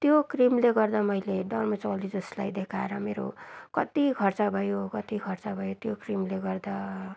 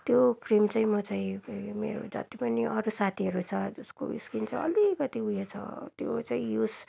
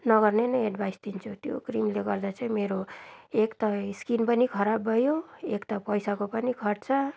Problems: constant background noise